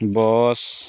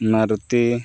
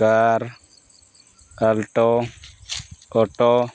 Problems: none marked